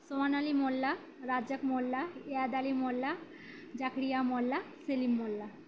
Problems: background sounds at intervals